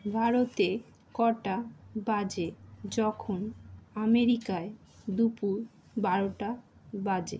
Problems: background sounds at intervals